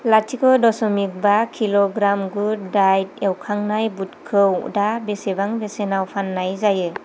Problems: constant background noise